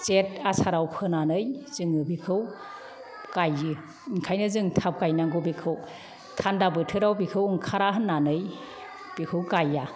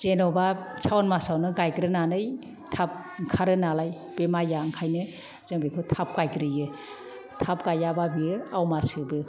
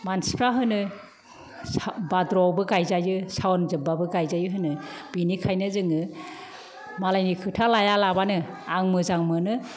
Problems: none marked